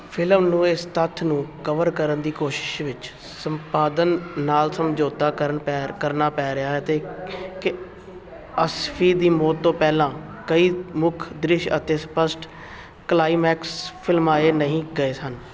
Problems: constant background noise